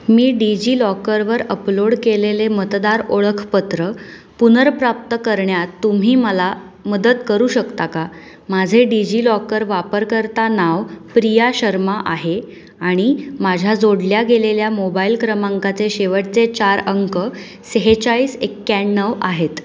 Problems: none marked